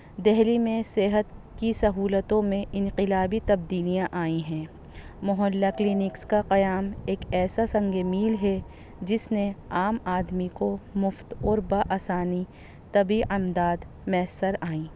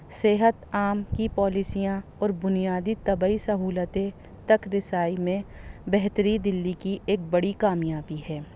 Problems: low volume